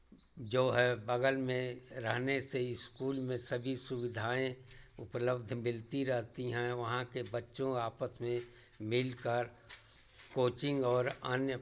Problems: none marked